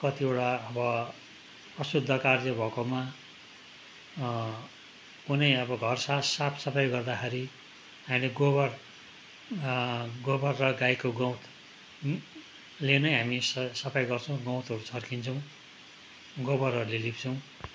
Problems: none marked